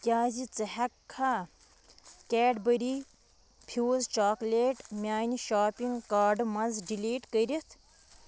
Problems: constant background noise